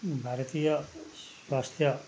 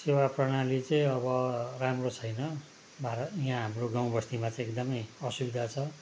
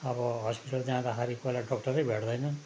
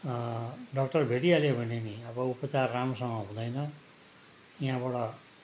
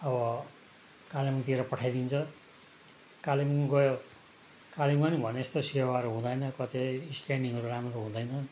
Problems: constant background noise